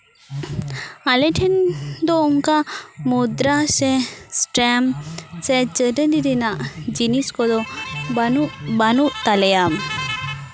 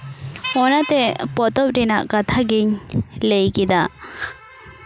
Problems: background conversations at intervals